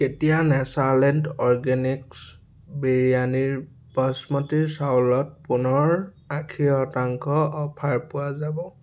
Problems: background sounds at intervals